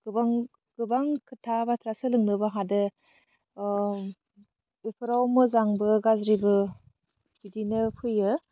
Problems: low volume